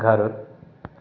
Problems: constant background noise, echo